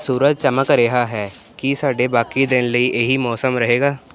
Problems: constant background noise